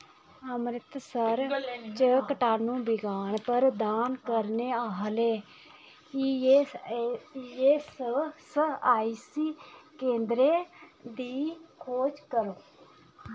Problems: background sounds at intervals